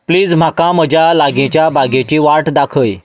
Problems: constant background noise